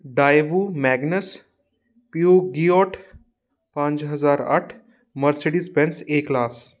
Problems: none marked